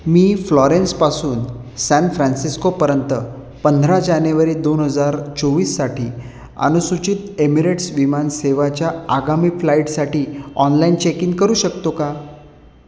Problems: none marked